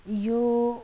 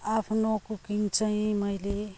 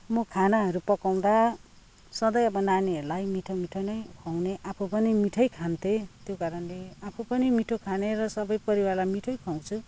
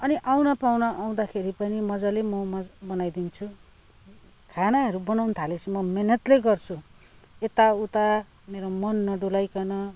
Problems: background sounds at intervals